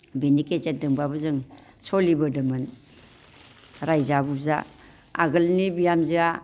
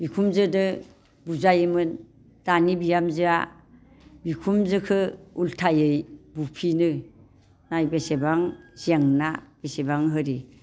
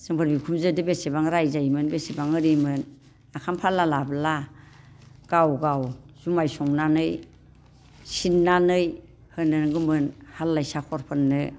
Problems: constant background noise